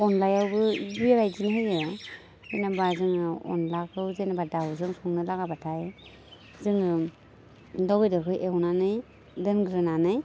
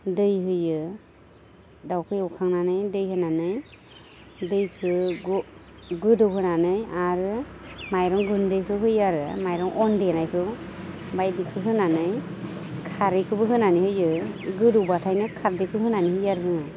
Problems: constant background noise